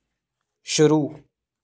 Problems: background sounds at intervals